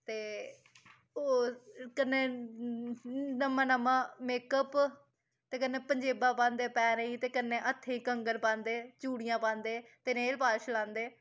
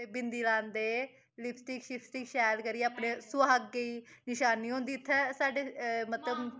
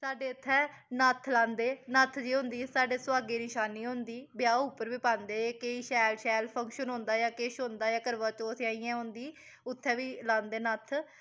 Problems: none marked